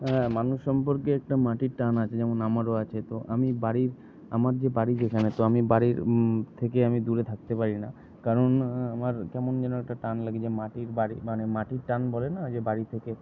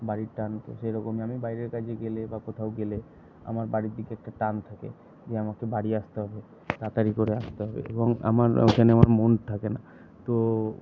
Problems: none marked